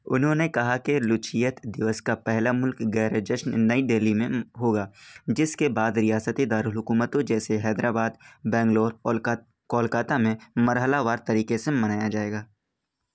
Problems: none marked